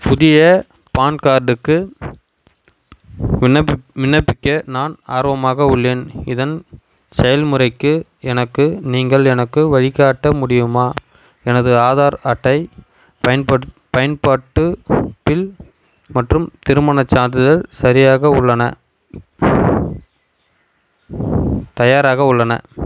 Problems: constant background noise